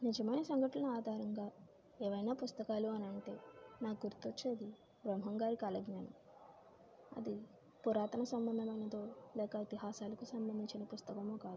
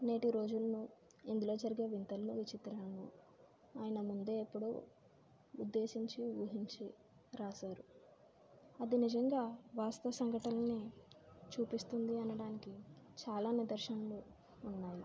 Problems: low volume